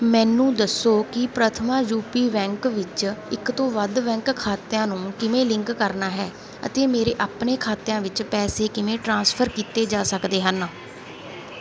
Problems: none marked